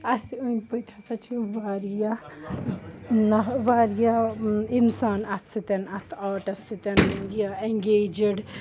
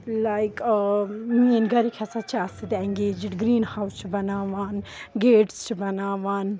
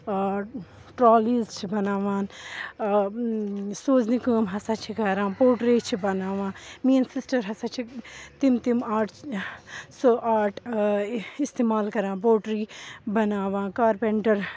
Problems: constant background noise